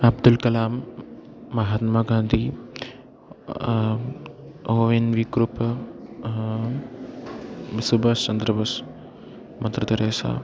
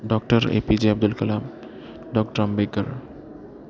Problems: background sounds at intervals